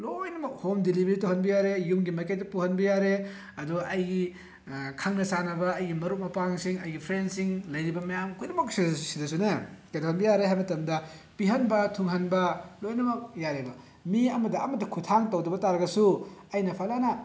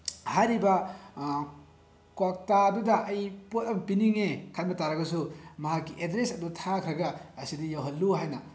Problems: background sounds at intervals